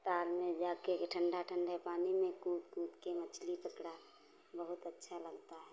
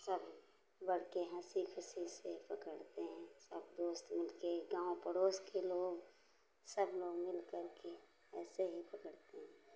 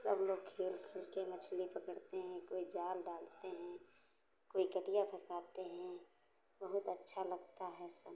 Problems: background sounds at intervals